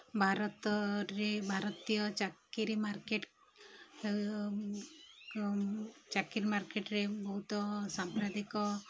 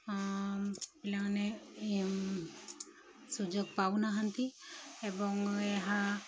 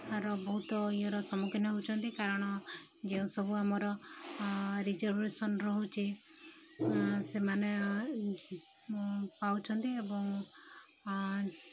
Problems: background sounds at intervals